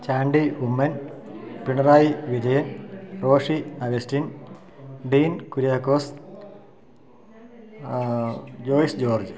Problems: low volume